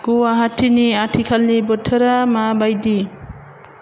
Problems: constant background noise